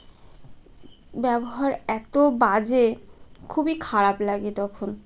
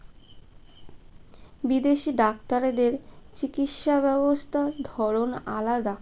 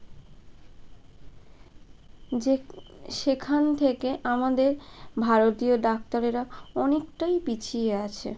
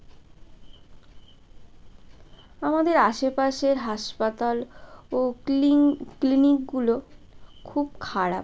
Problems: constant background noise, background conversations at intervals